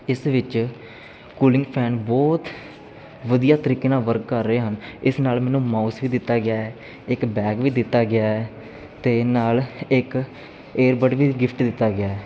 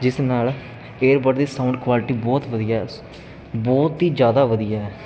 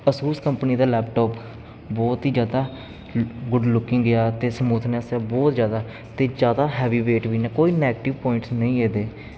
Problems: constant background noise